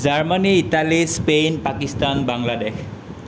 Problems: constant background noise